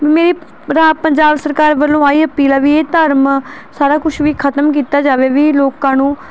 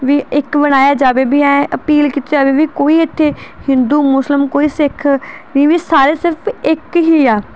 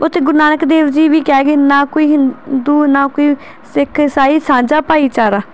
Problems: none marked